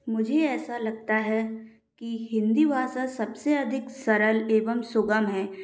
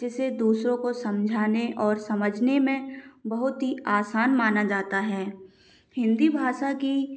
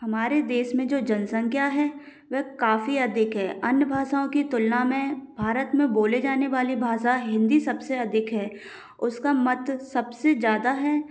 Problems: none marked